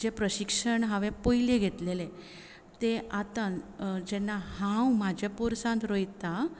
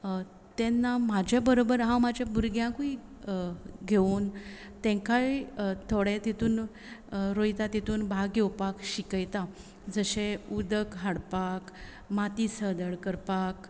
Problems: constant background noise